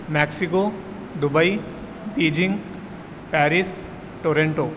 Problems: constant background noise, echo